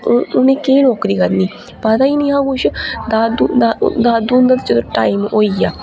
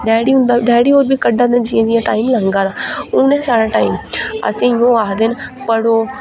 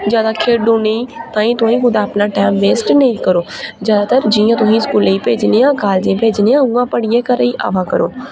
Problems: none marked